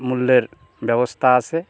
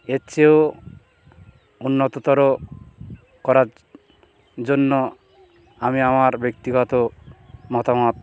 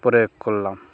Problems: constant background noise